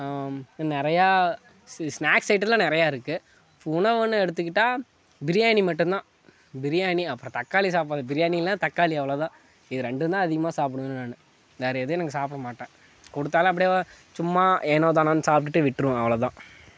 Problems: background sounds at intervals, background conversations at intervals